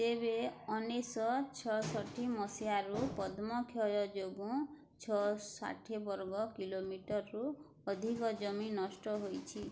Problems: none marked